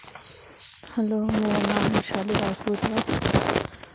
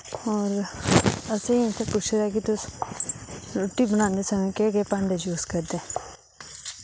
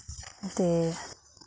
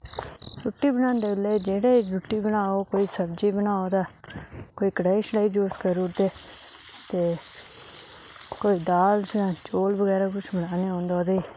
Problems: constant background noise